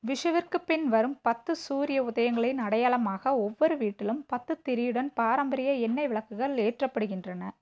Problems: low volume